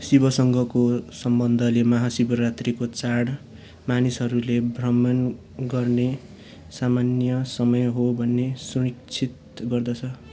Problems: background conversations at intervals